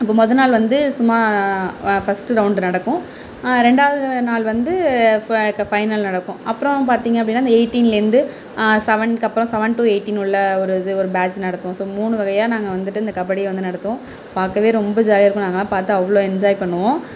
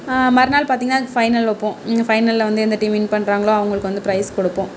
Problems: none marked